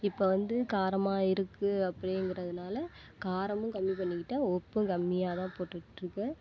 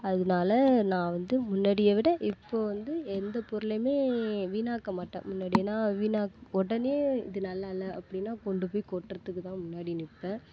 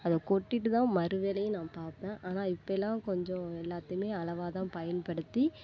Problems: constant background noise